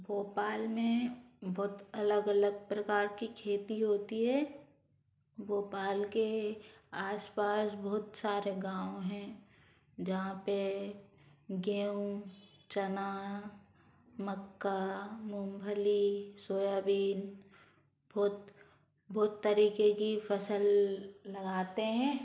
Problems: background sounds at intervals